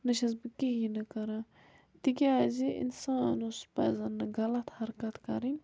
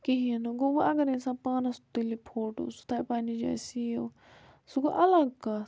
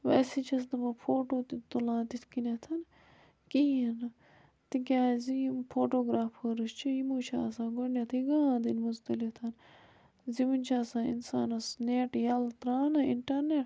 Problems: background sounds at intervals